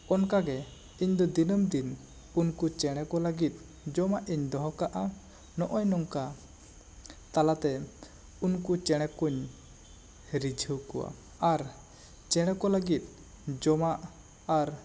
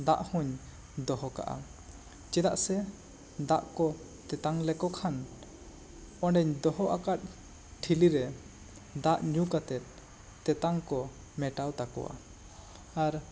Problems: constant background noise